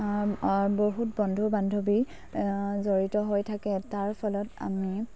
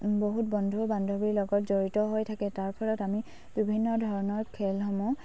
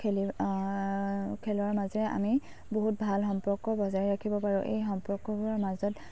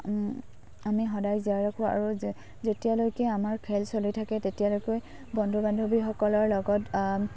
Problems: low volume